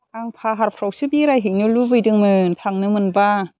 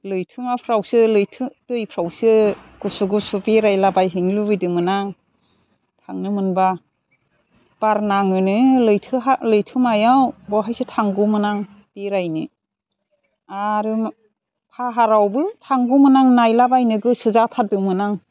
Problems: constant background noise